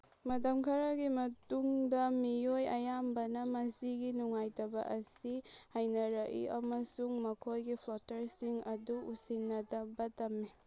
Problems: none marked